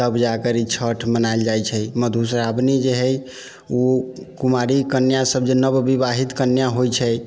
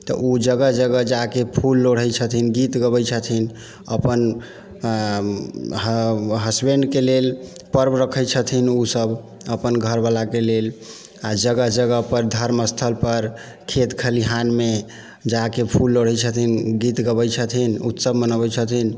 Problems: none marked